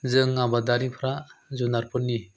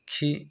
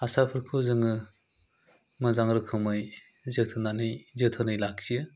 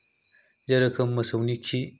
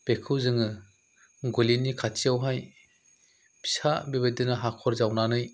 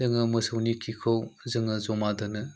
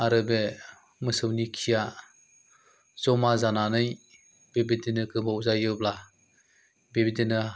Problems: none marked